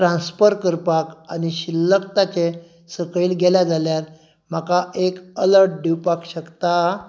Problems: none marked